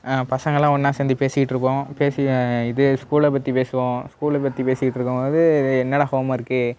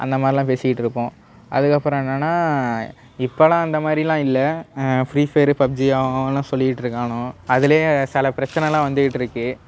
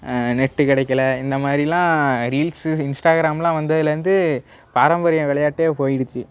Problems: background sounds at intervals